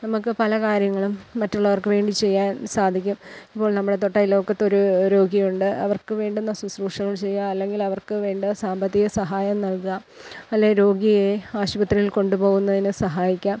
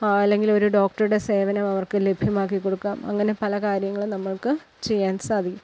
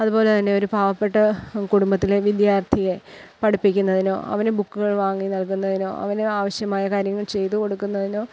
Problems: background sounds at intervals